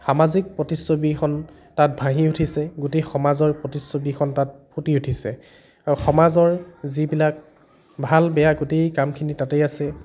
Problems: background conversations at intervals